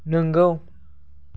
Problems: none marked